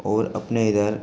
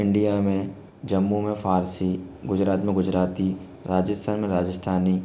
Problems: constant background noise